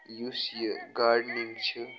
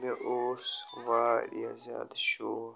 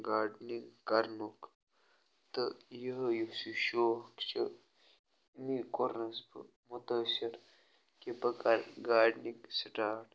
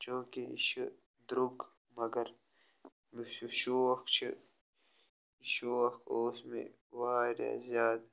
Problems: background sounds at intervals